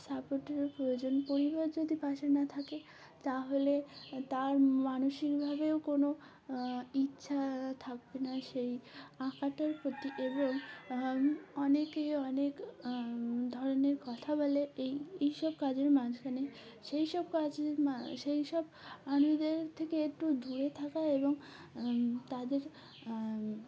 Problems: background sounds at intervals